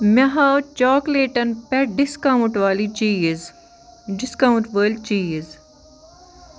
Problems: background sounds at intervals